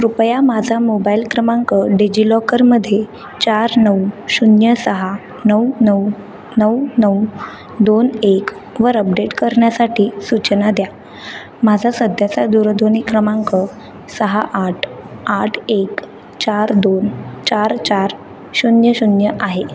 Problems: background sounds at intervals